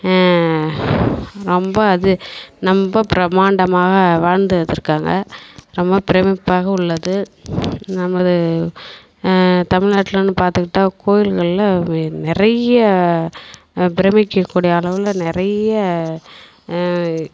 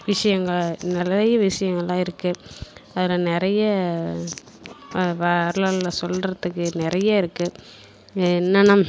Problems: constant background noise